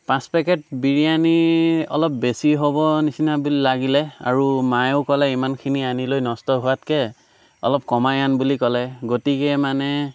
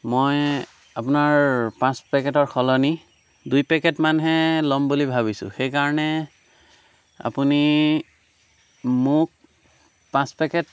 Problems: background sounds at intervals